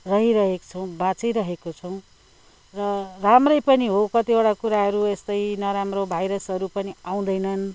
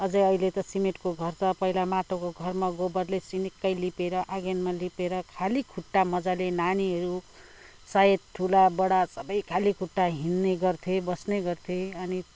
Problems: none marked